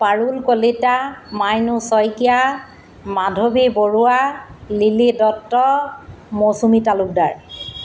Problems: none marked